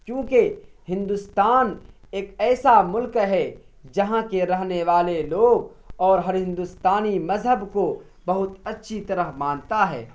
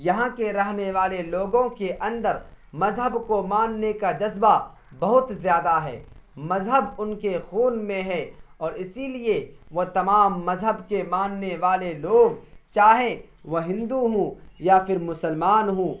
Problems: constant background noise